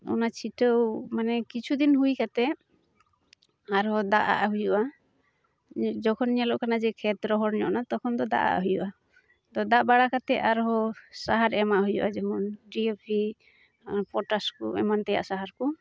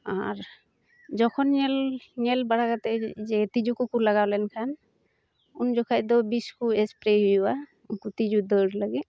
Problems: none marked